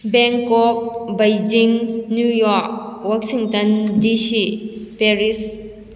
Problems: none marked